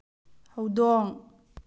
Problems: low volume